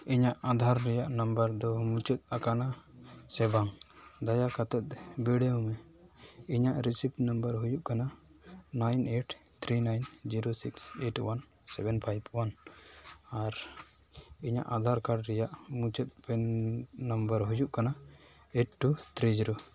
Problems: background sounds at intervals